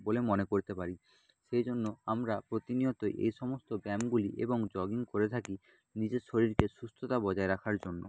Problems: low volume